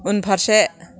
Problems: none marked